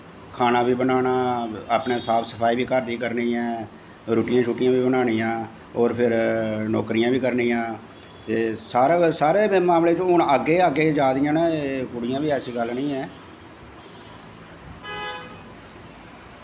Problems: echo